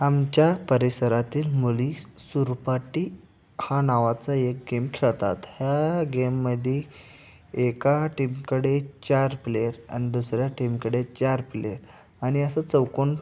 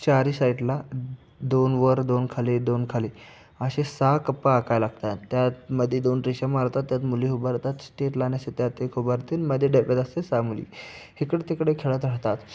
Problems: none marked